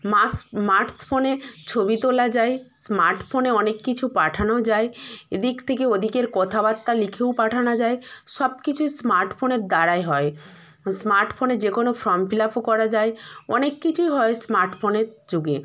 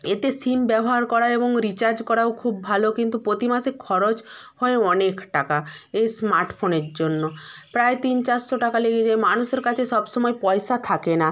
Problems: constant background noise